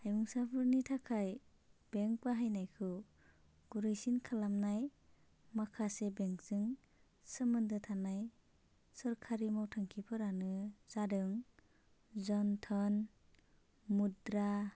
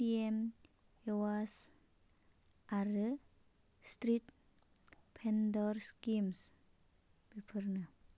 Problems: constant background noise